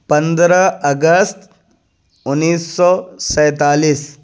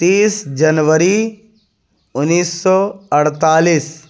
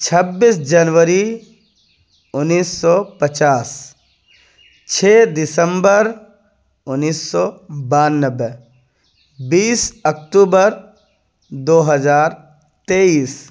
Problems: none marked